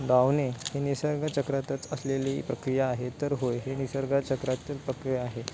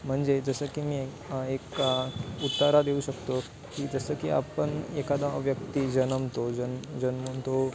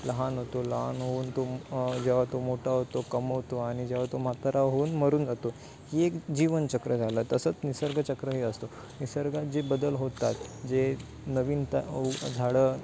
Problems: constant background noise